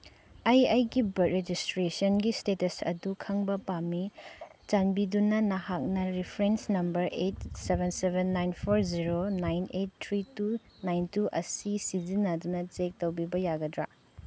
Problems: none marked